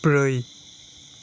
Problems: constant background noise